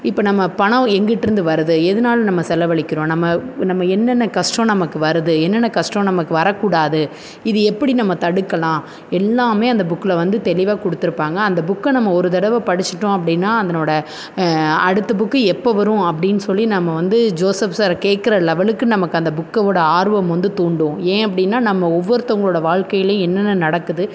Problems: constant background noise